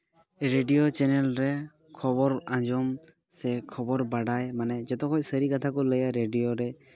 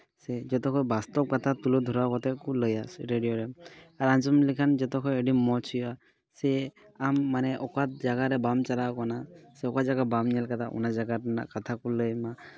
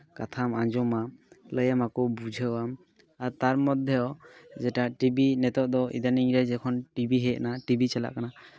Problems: background sounds at intervals, background conversations at intervals